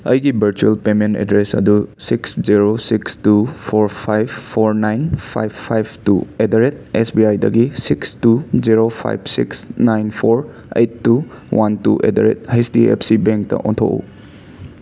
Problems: constant background noise